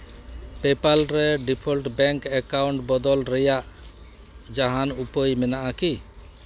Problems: constant background noise